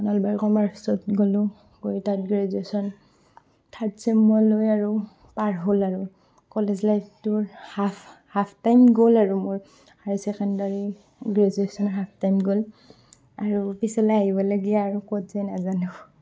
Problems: background sounds at intervals, background conversations at intervals